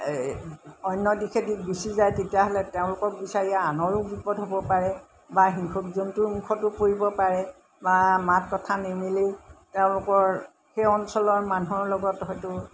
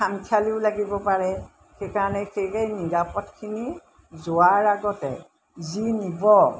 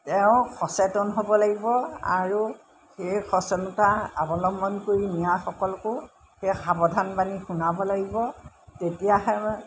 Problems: none marked